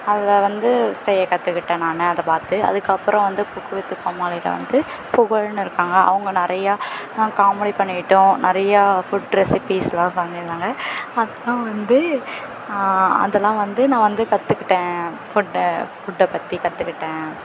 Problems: constant background noise